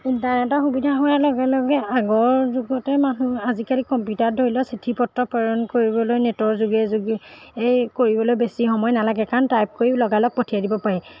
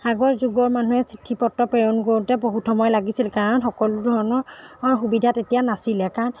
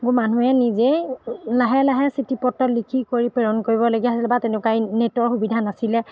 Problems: background sounds at intervals